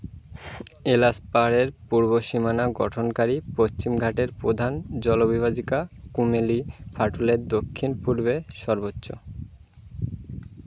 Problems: constant background noise